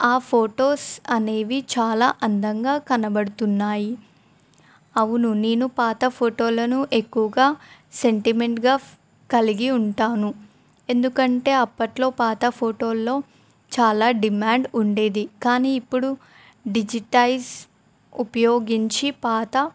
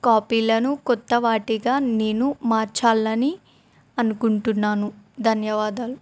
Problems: none marked